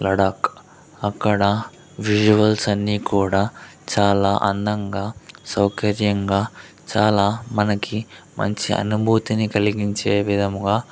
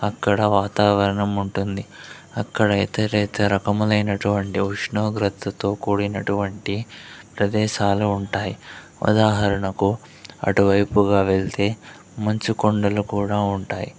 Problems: background conversations at intervals